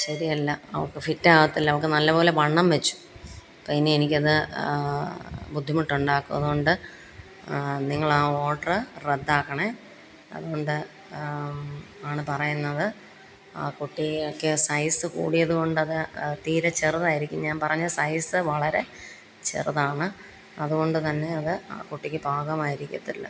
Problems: constant background noise